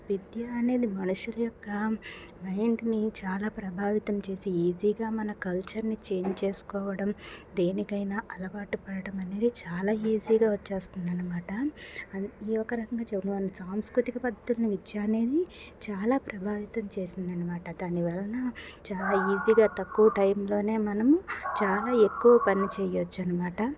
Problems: constant background noise